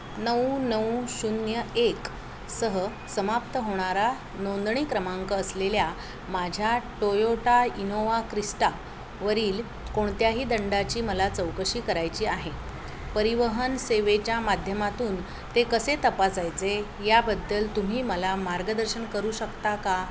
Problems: none marked